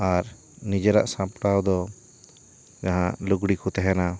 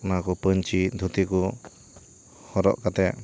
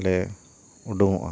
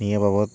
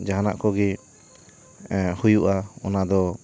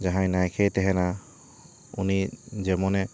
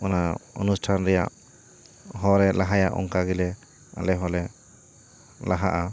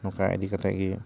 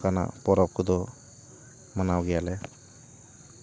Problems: background sounds at intervals